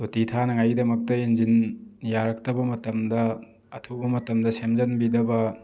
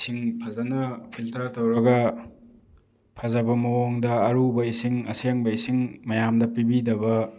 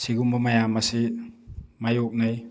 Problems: background sounds at intervals